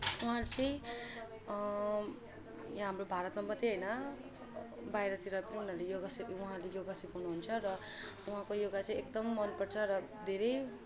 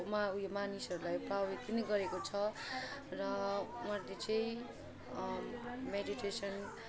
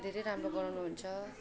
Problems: constant background noise, continuous background conversations